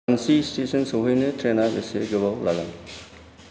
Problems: low volume